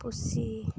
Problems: none marked